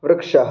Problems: none marked